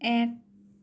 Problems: none marked